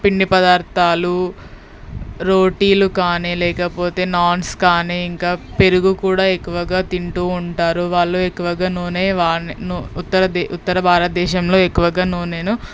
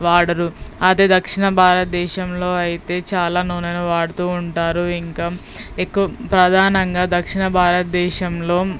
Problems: background sounds at intervals